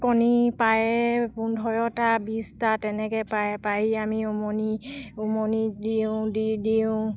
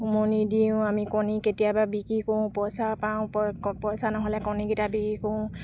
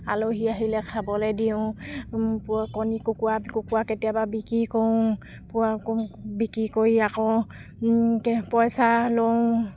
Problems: none marked